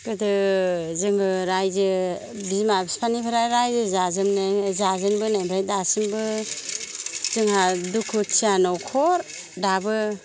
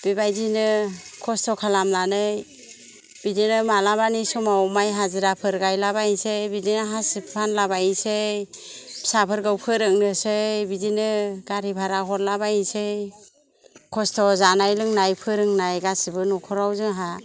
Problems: none marked